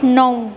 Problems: continuous background conversations